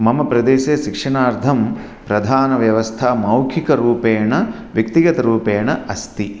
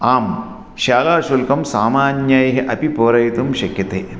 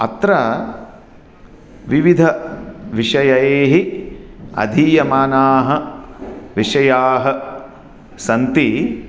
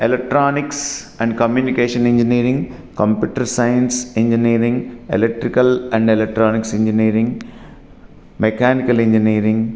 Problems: none marked